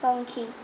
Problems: constant background noise